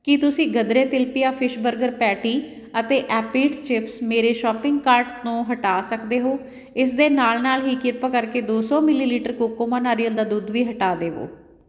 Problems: none marked